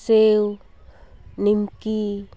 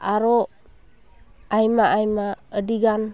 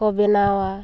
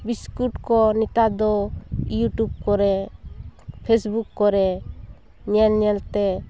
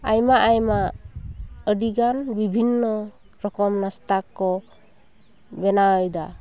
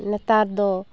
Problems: none marked